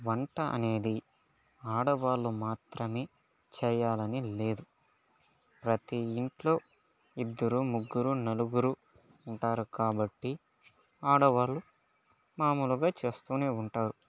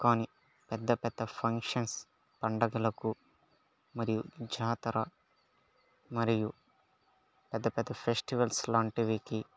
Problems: low volume